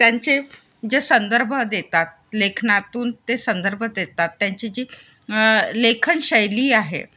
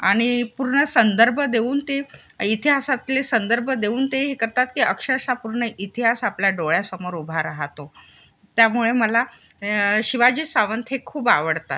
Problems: constant background noise